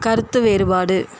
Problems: constant background noise